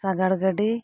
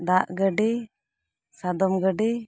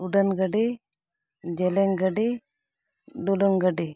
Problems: none marked